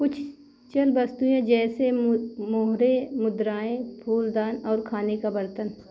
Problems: constant background noise